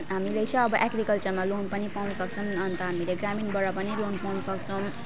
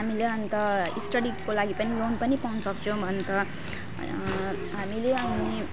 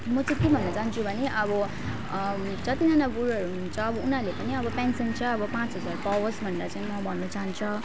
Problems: continuous background conversations